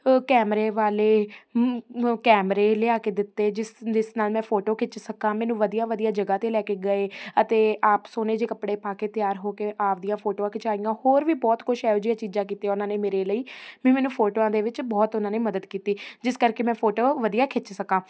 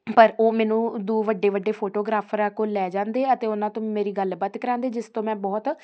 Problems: constant background noise